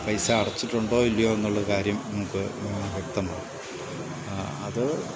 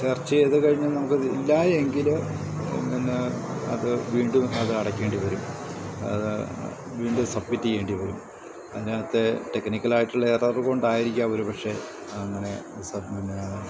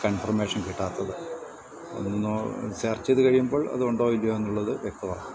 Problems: constant background noise